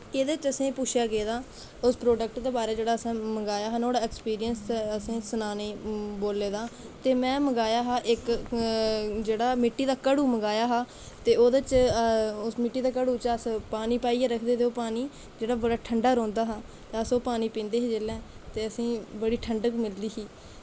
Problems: constant background noise